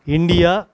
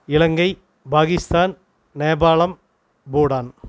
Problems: none marked